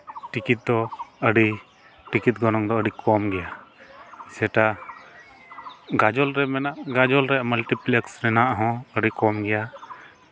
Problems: constant background noise, background conversations at intervals